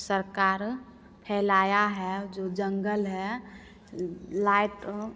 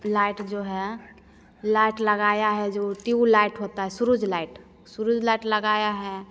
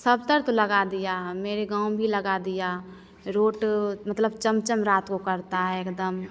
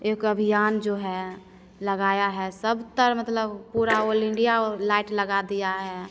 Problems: constant background noise